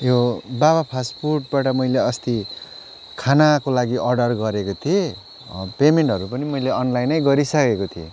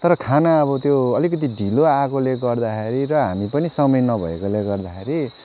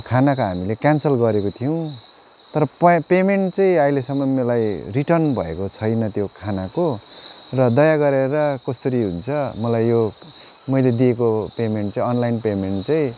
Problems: constant background noise